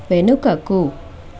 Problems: constant background noise